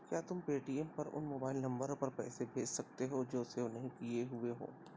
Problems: constant background noise, low volume